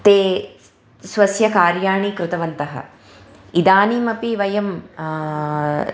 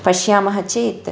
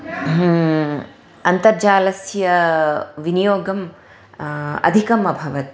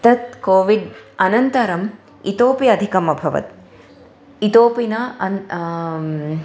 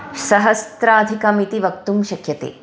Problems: background sounds at intervals